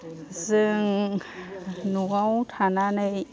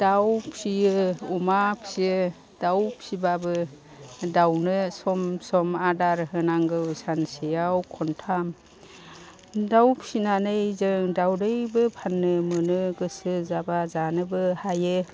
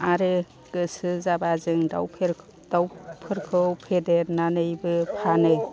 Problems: constant background noise